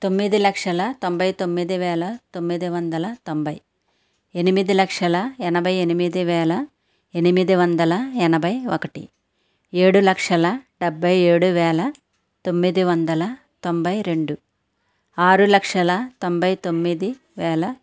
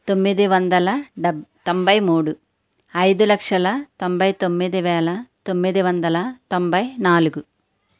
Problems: none marked